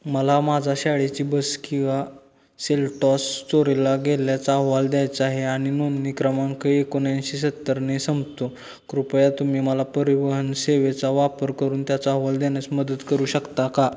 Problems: constant background noise